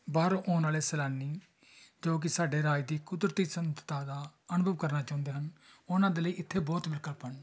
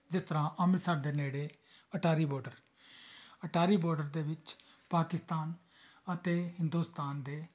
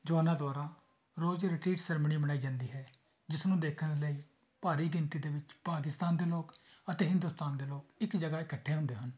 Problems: continuous background conversations